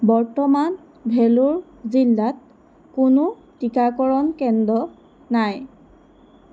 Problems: none marked